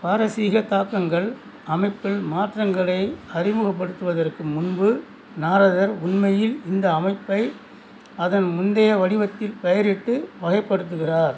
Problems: background sounds at intervals